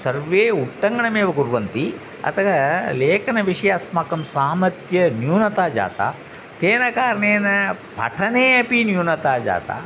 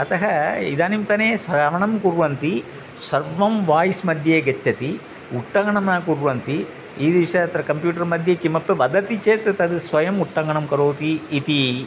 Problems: constant background noise